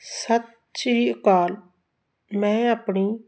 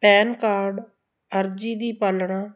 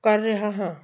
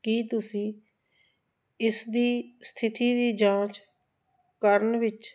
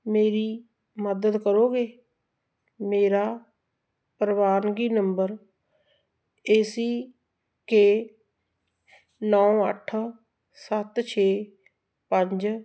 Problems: constant background noise